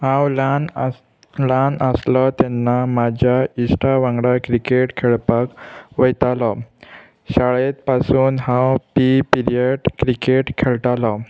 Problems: constant background noise